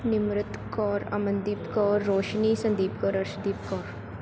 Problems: background sounds at intervals